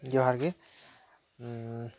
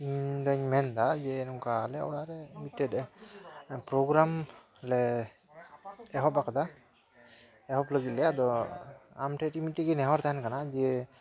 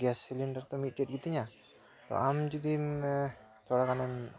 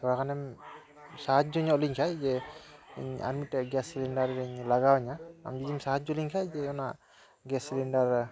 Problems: none marked